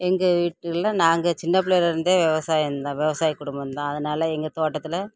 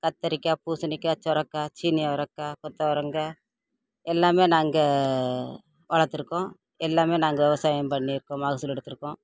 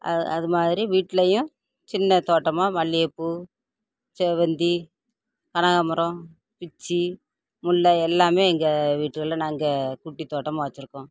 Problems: none marked